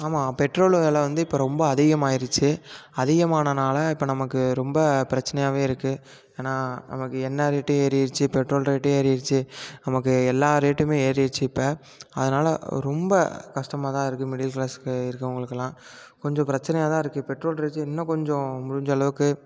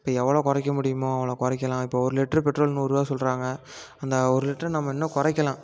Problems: constant background noise